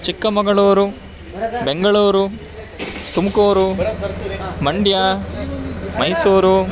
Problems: none marked